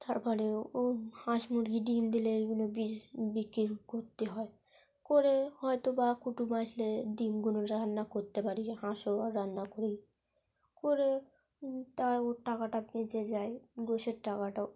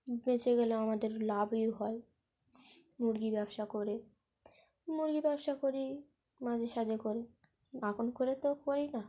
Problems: background sounds at intervals